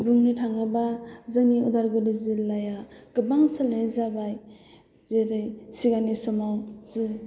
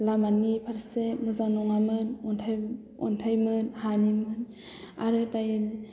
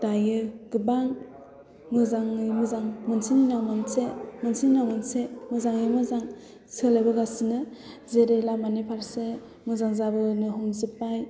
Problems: low volume